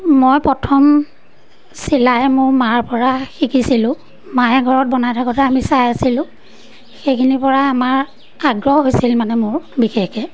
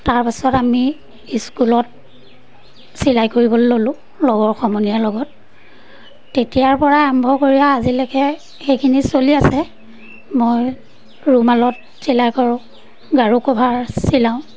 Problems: background sounds at intervals